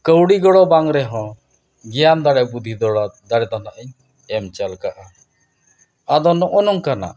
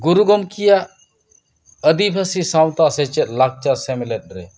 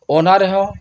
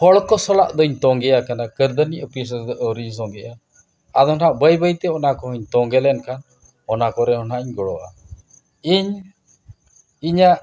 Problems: none marked